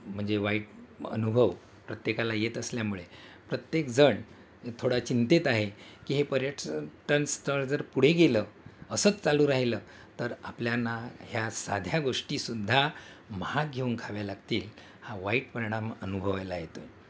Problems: constant background noise, background conversations at intervals